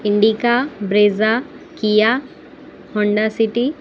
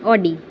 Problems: constant background noise